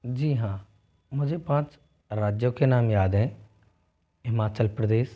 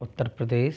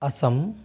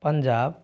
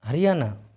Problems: none marked